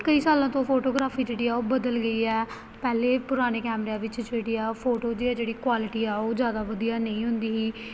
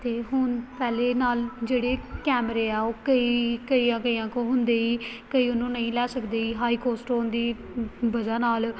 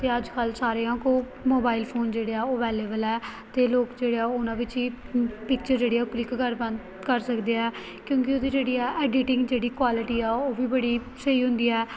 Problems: none marked